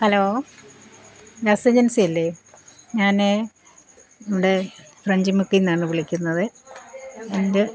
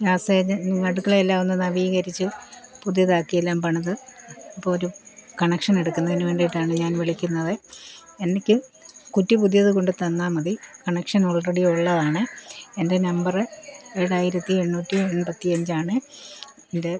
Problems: constant background noise